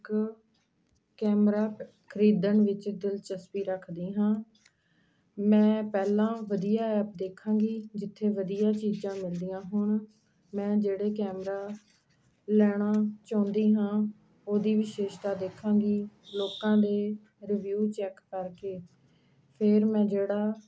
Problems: background sounds at intervals